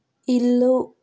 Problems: none marked